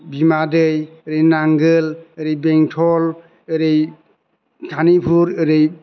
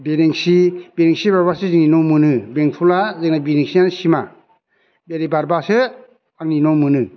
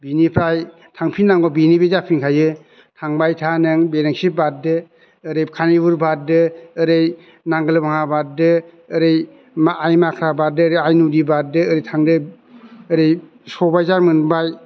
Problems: constant background noise